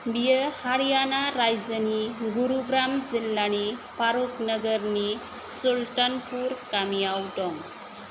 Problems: constant background noise